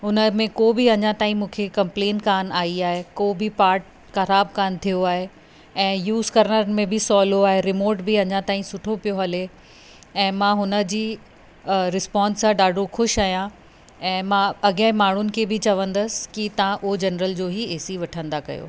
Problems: constant background noise